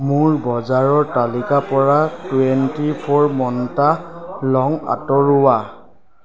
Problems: background sounds at intervals, background conversations at intervals